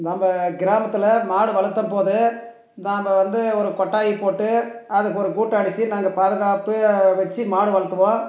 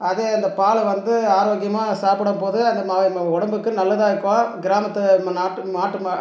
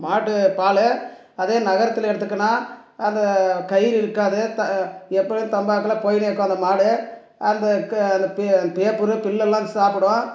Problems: none marked